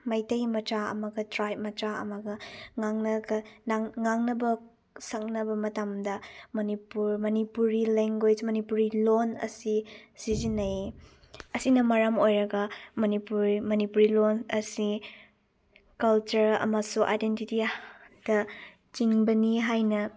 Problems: none marked